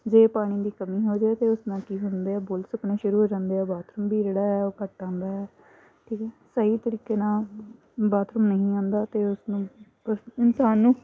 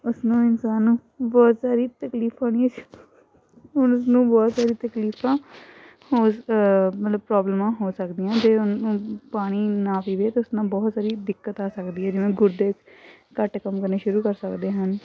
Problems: constant background noise